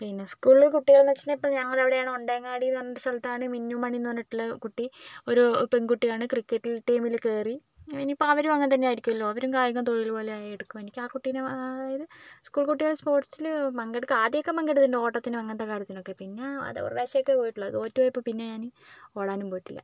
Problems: none marked